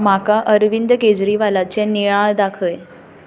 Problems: background conversations at intervals